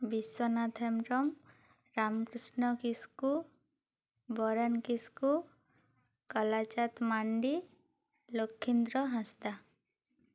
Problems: none marked